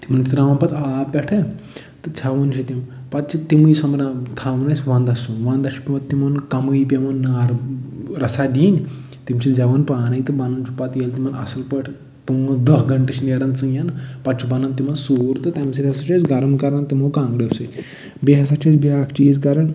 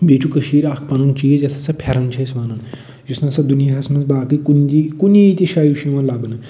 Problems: none marked